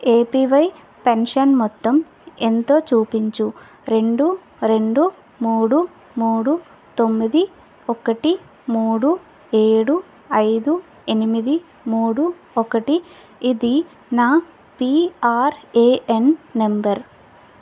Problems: none marked